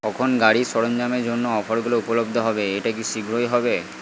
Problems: constant background noise